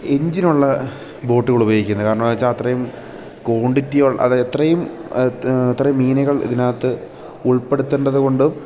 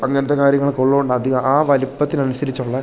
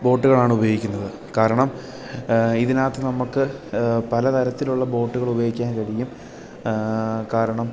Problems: background sounds at intervals